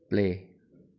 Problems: low volume